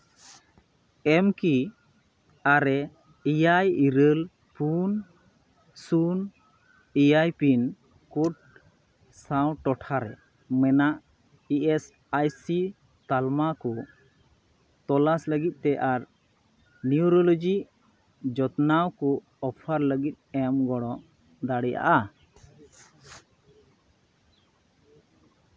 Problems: none marked